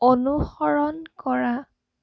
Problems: none marked